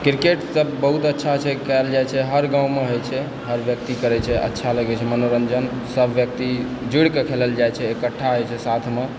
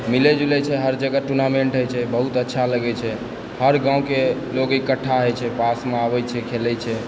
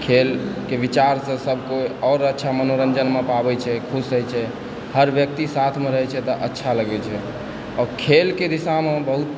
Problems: constant background noise, background conversations at intervals